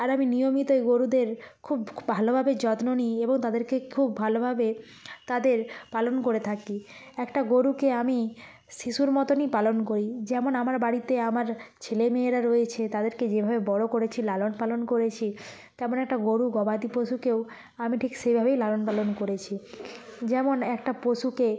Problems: background sounds at intervals